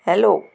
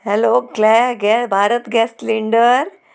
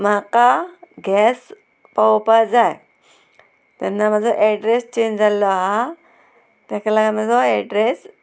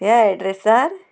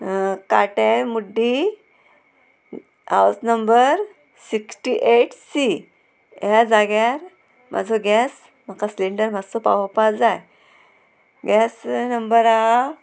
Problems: constant background noise, background conversations at intervals